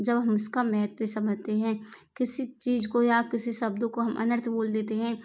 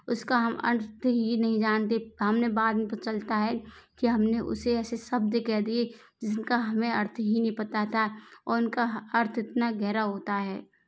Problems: none marked